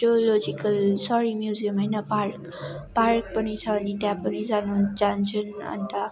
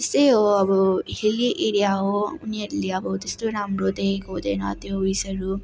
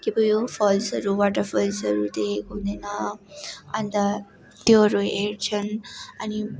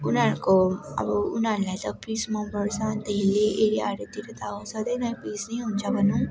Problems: none marked